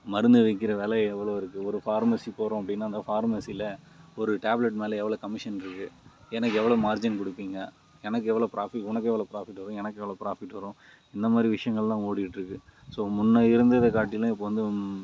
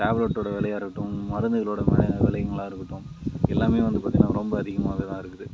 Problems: background sounds at intervals